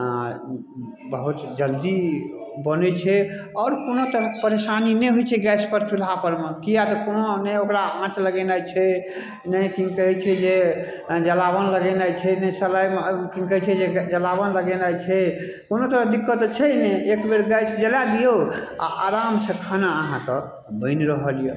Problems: none marked